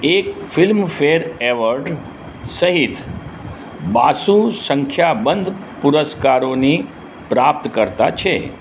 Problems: background sounds at intervals